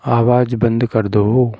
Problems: background sounds at intervals